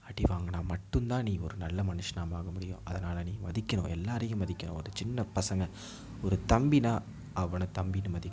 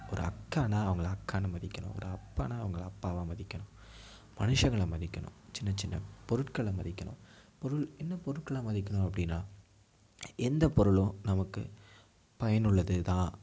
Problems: background sounds at intervals